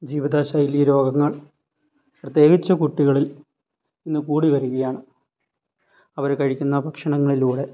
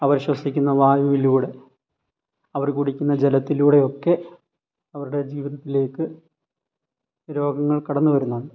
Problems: none marked